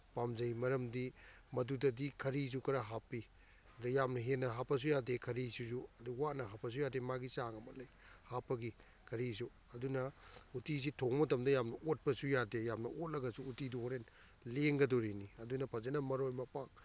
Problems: none marked